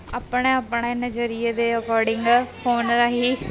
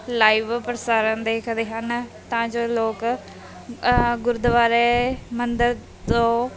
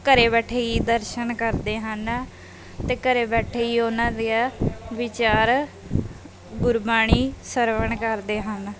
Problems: background sounds at intervals, background conversations at intervals